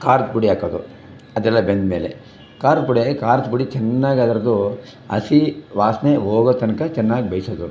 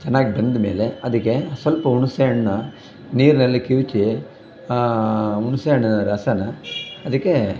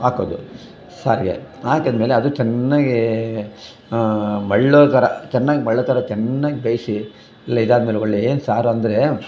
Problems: background sounds at intervals